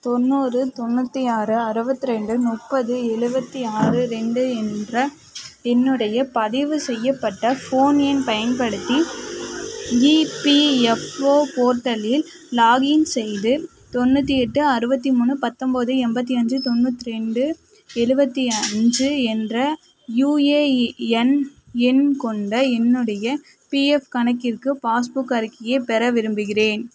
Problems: constant background noise